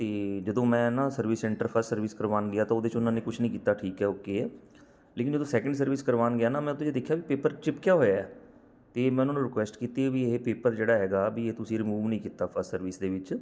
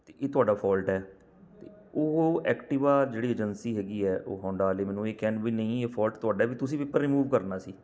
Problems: background sounds at intervals